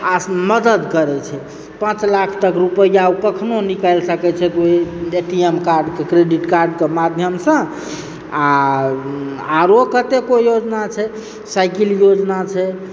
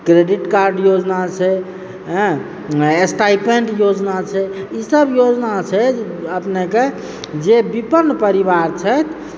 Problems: background sounds at intervals